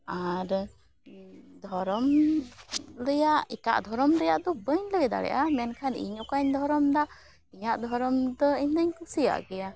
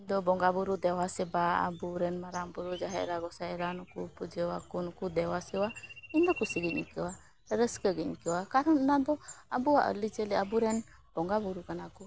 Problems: none marked